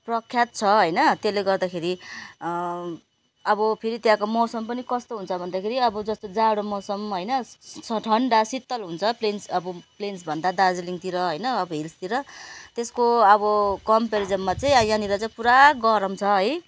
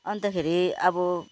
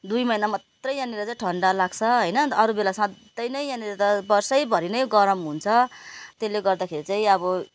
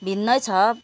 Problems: none marked